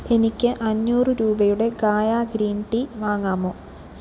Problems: none marked